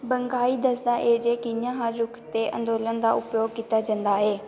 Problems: constant background noise